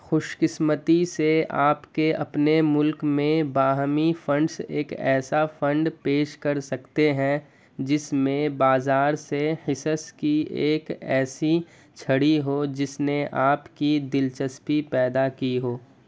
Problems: background sounds at intervals